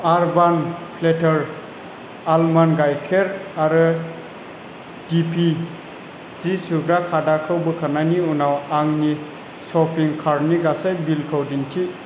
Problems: constant background noise